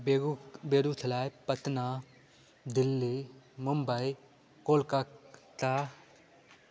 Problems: constant background noise